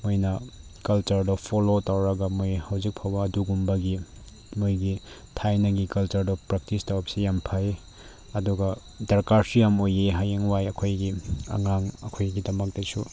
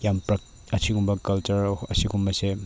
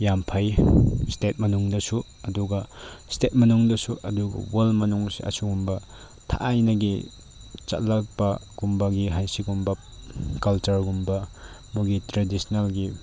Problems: constant background noise